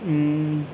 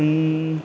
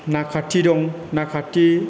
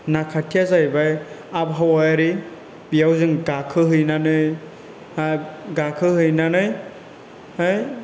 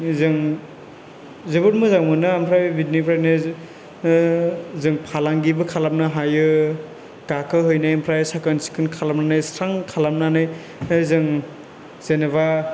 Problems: background sounds at intervals